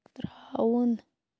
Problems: background sounds at intervals